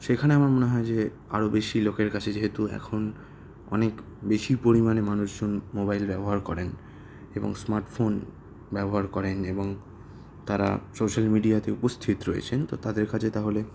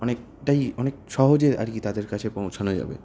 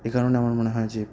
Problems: none marked